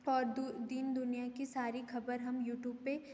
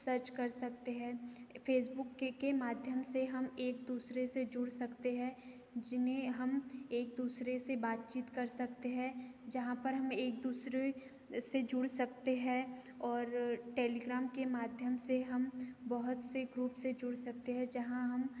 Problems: constant background noise